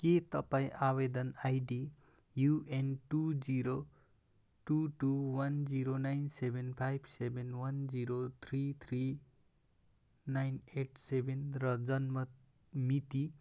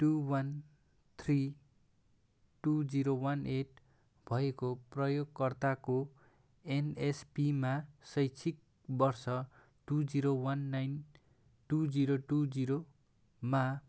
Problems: none marked